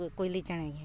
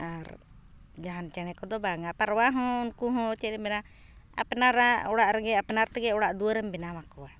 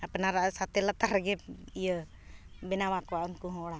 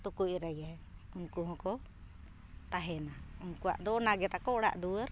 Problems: background sounds at intervals, background conversations at intervals